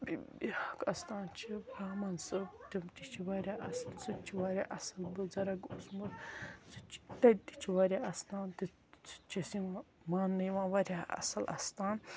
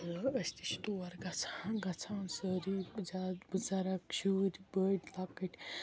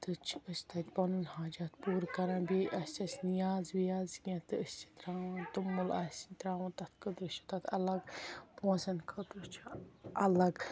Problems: background sounds at intervals